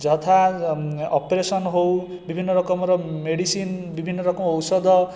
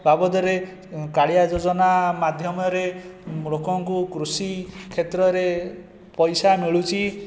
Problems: constant background noise